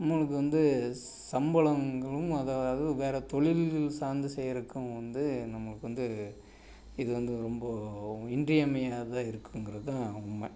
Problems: none marked